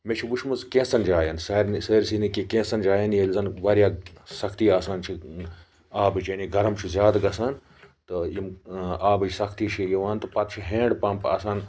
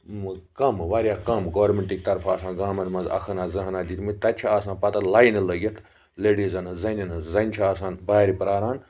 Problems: background sounds at intervals, background conversations at intervals